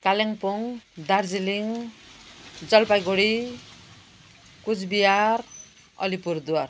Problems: constant background noise